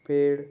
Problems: background sounds at intervals